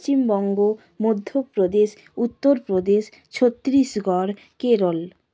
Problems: constant background noise